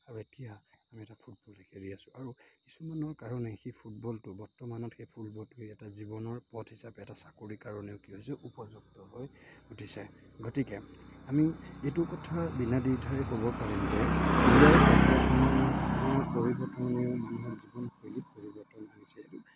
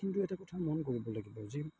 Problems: constant background noise